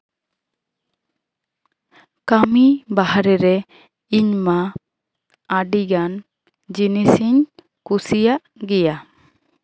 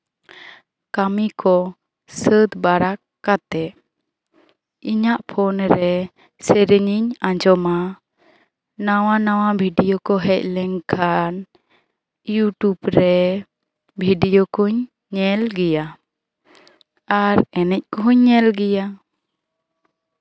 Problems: background conversations at intervals